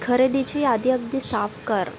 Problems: constant background noise, continuous background conversations